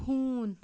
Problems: background sounds at intervals, low volume